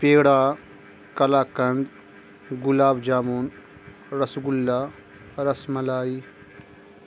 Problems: constant background noise